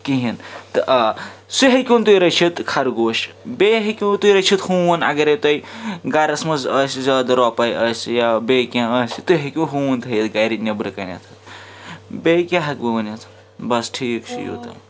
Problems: constant background noise